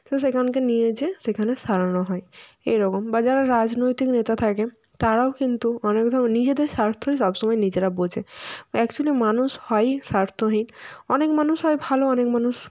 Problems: background sounds at intervals